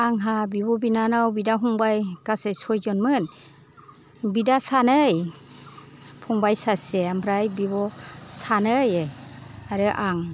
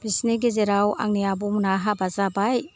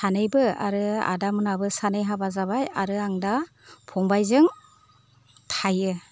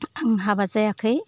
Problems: low volume